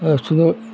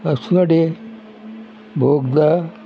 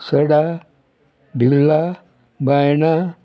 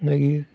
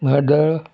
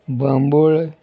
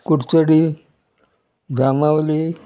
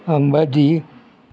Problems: constant background noise